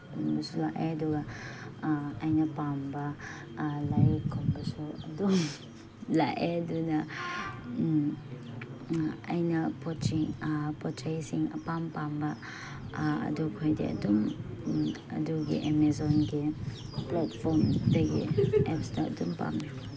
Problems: background sounds at intervals